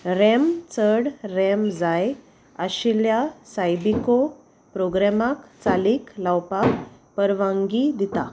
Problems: background sounds at intervals